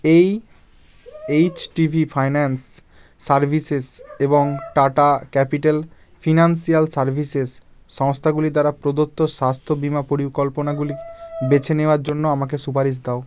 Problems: none marked